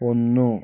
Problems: low volume